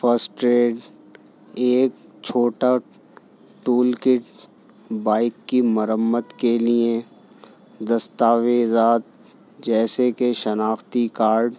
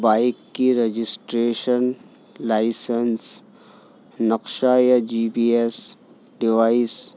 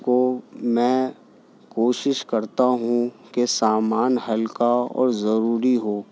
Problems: constant background noise